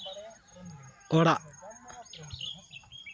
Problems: continuous background conversations